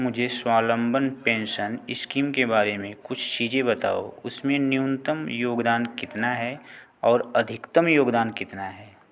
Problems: none marked